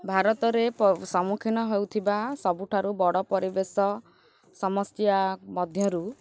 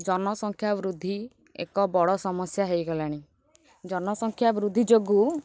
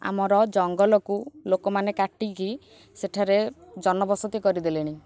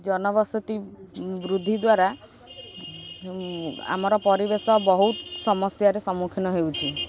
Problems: constant background noise